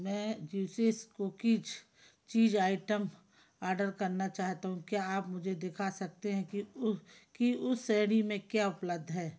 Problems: background sounds at intervals, low volume